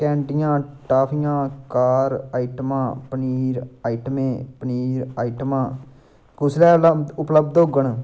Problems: background sounds at intervals